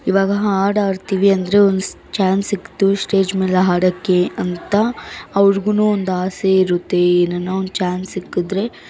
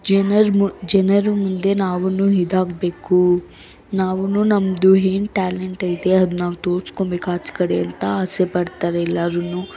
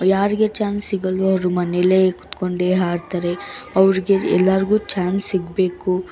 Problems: background sounds at intervals